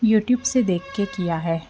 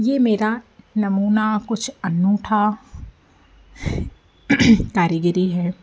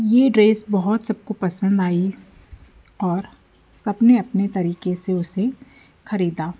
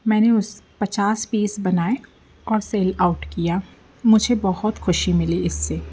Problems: constant background noise